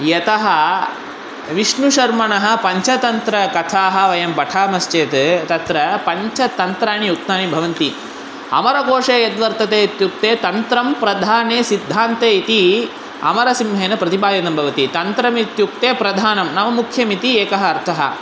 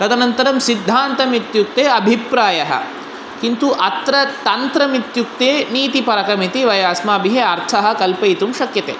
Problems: constant background noise